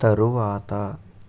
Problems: constant background noise